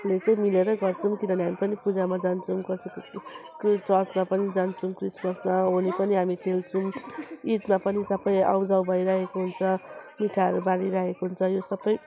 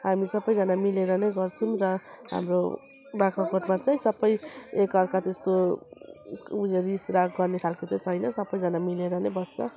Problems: constant background noise, continuous background conversations